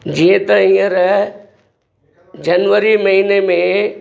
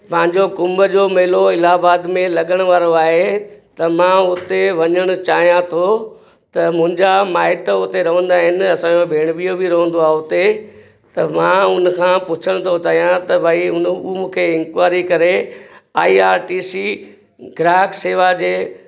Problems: background sounds at intervals, echo